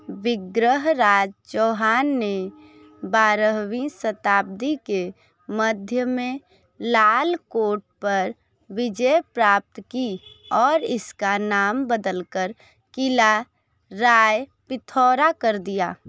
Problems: background sounds at intervals